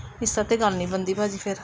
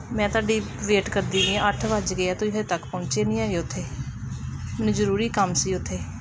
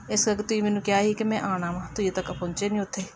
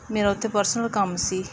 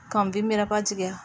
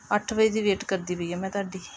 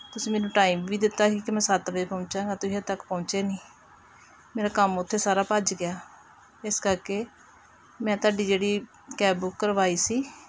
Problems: background conversations at intervals